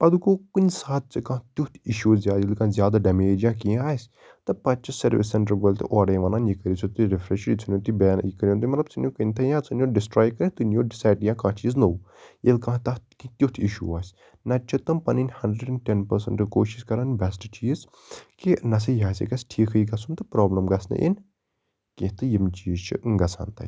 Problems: background sounds at intervals